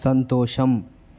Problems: none marked